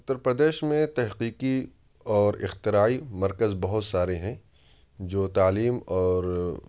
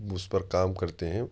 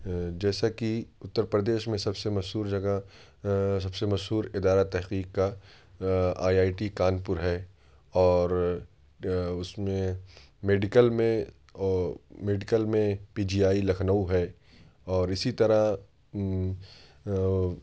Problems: none marked